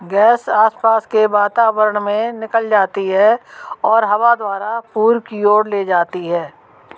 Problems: background sounds at intervals